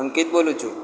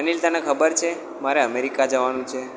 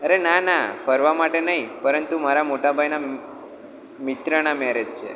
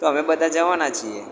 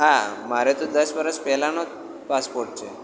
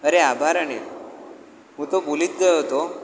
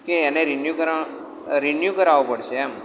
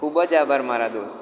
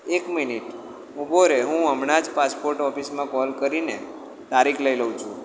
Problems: constant background noise, echo